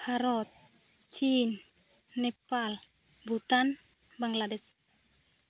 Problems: none marked